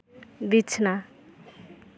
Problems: constant background noise